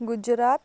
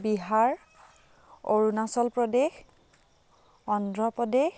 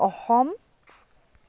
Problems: constant background noise